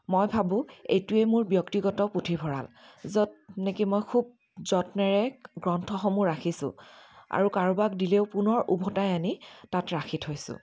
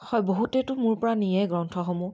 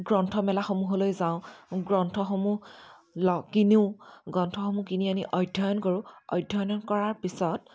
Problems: constant background noise, continuous background conversations